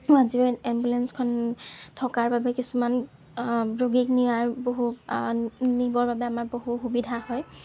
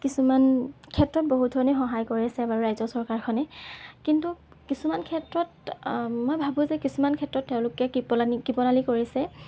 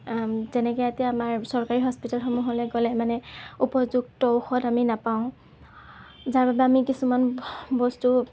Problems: background sounds at intervals